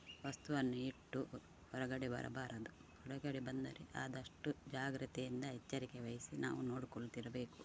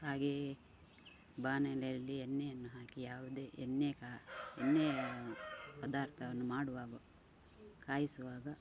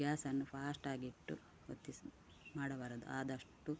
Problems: constant background noise